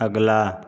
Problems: none marked